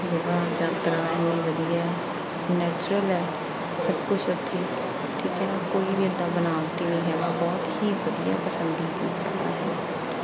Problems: background sounds at intervals